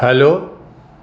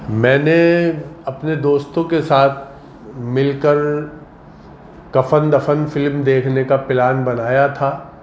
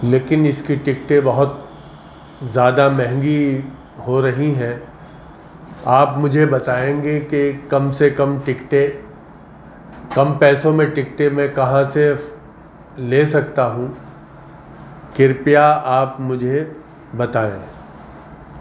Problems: constant background noise